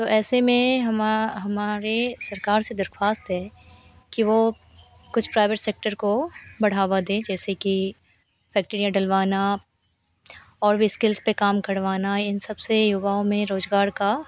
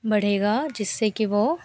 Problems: constant background noise